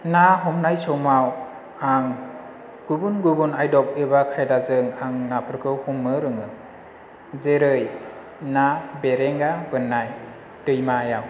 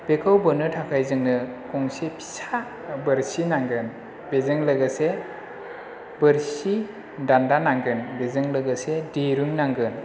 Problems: none marked